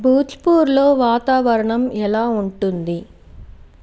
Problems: constant background noise